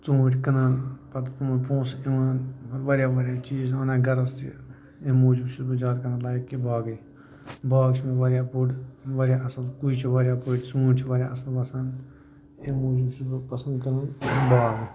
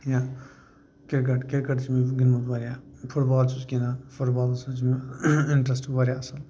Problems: constant background noise, low volume